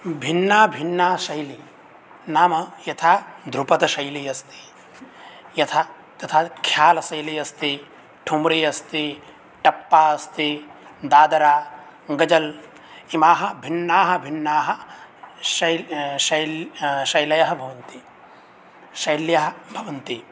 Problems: none marked